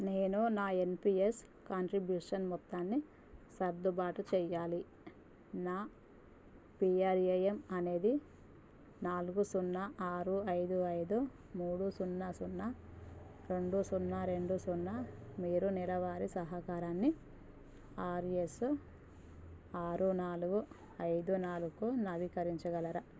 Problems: none marked